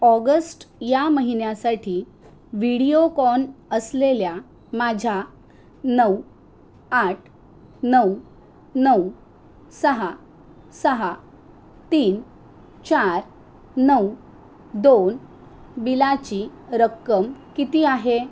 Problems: none marked